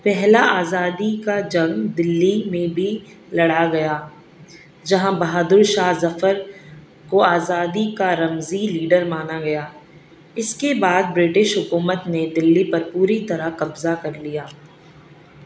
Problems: none marked